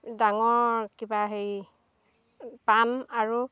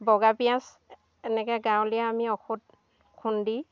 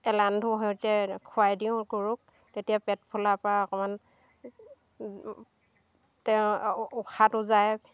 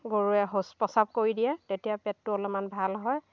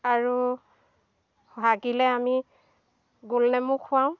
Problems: constant background noise, continuous background conversations